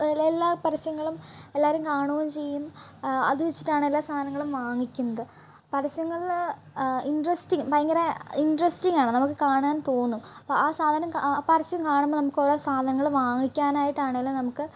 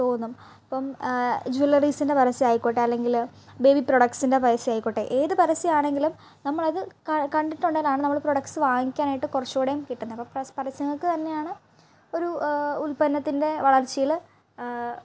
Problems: low volume